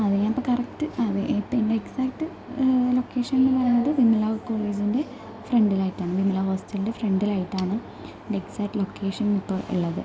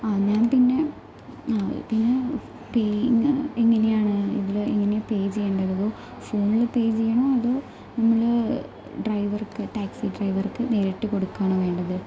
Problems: low volume